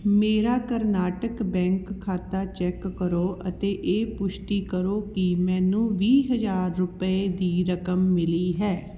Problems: none marked